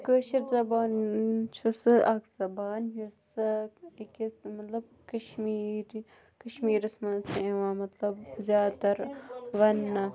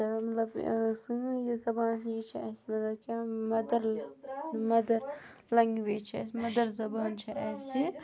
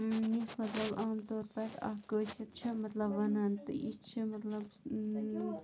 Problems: background sounds at intervals, continuous background conversations